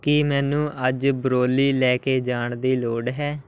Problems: background sounds at intervals